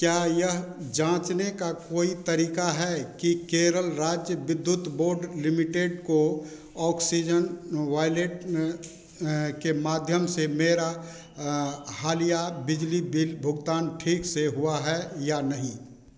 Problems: constant background noise